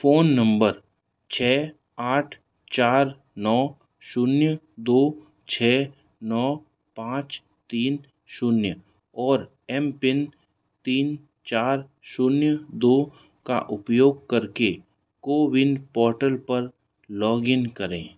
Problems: none marked